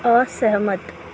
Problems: none marked